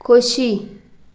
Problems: background sounds at intervals